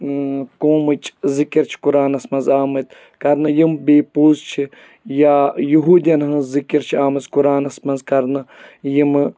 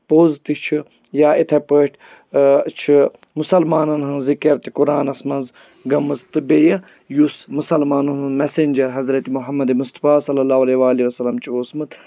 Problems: background sounds at intervals